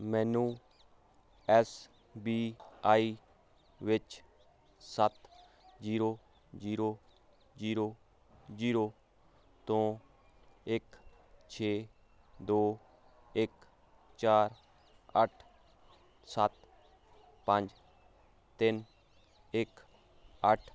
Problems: constant background noise